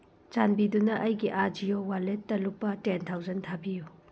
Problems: low volume